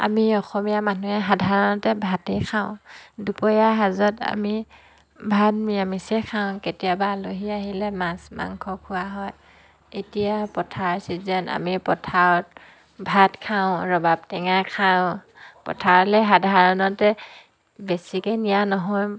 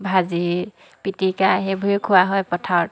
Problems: background conversations at intervals